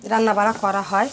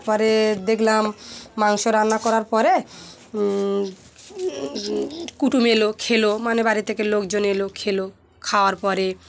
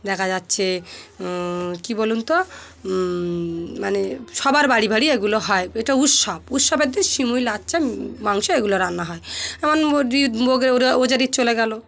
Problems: constant background noise, continuous background conversations